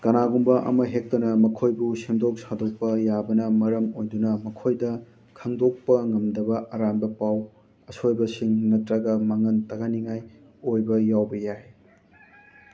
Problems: constant background noise